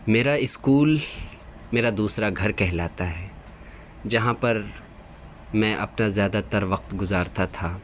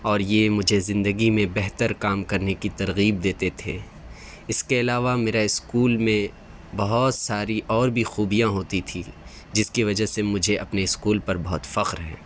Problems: constant background noise